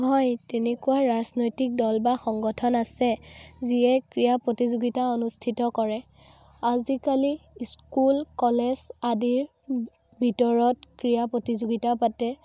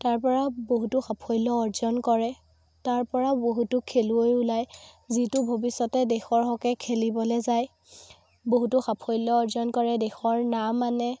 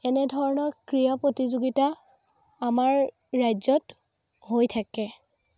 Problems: background sounds at intervals, background conversations at intervals